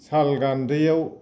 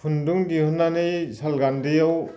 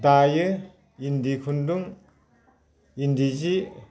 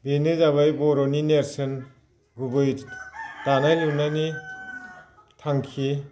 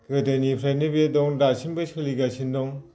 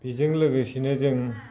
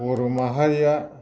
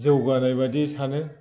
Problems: constant background noise